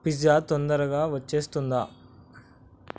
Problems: constant background noise